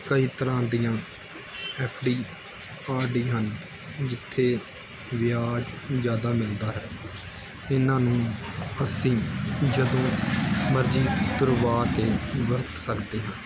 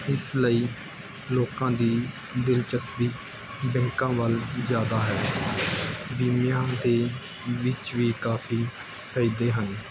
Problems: constant background noise